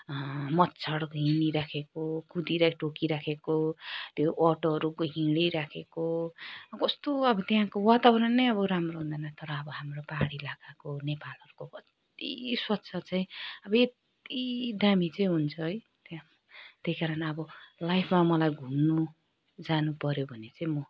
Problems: none marked